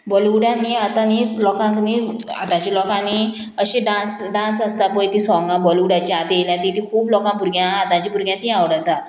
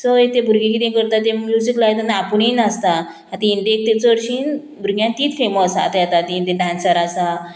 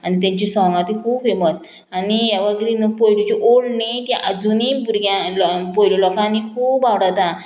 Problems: none marked